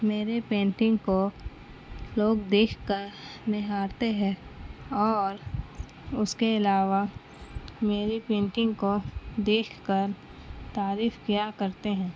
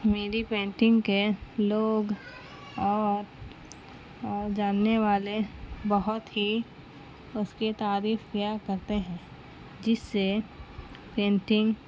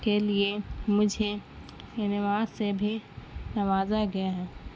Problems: constant background noise